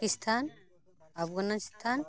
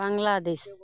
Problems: background sounds at intervals, background conversations at intervals